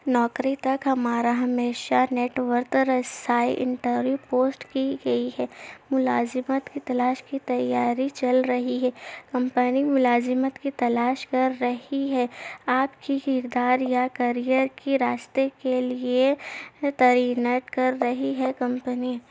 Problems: none marked